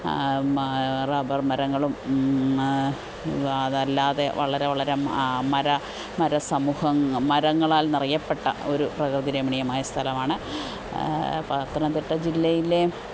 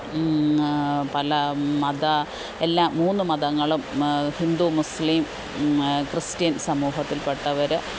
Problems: constant background noise